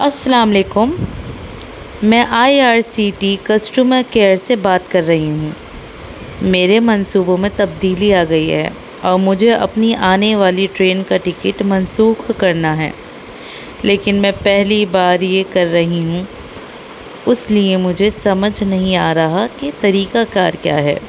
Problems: constant background noise